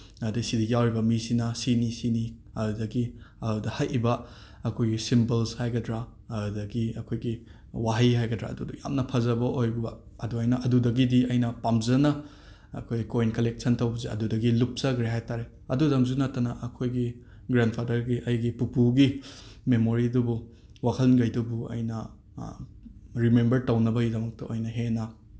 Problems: none marked